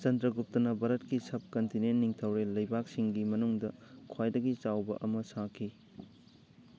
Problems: background conversations at intervals